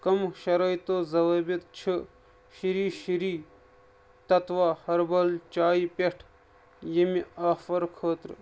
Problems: none marked